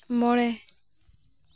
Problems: constant background noise